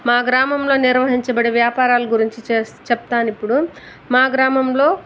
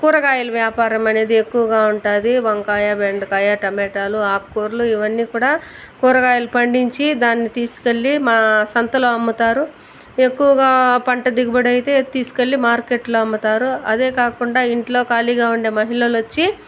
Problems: constant background noise, background conversations at intervals